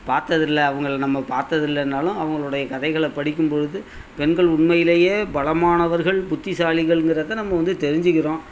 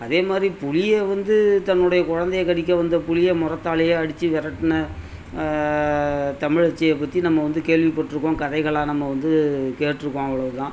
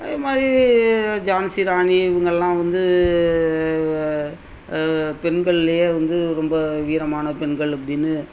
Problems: none marked